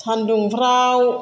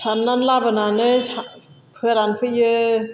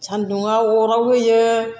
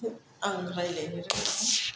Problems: none marked